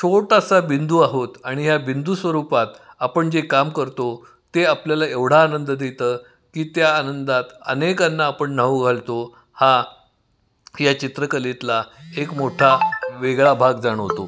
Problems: background sounds at intervals, echo